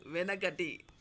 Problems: none marked